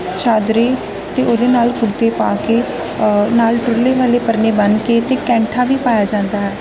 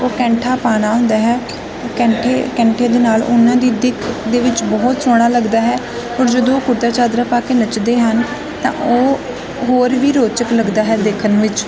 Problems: constant background noise